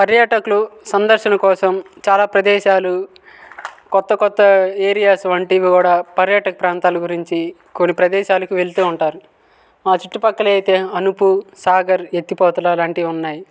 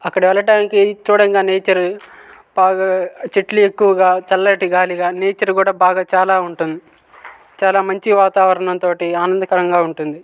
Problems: background sounds at intervals